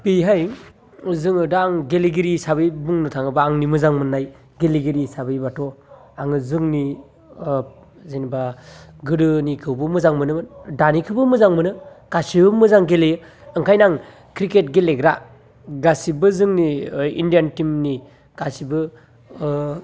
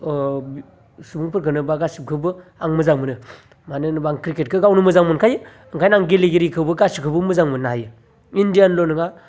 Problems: none marked